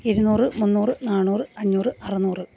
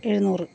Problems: constant background noise, background conversations at intervals